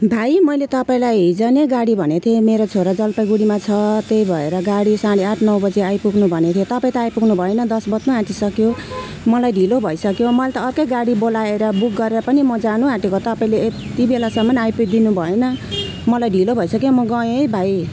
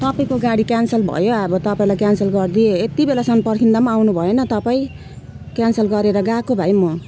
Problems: constant background noise